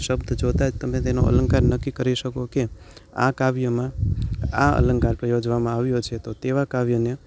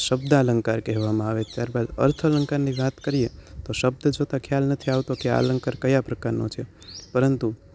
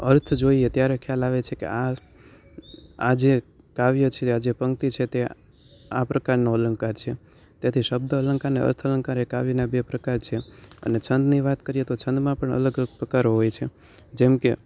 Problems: none marked